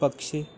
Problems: constant background noise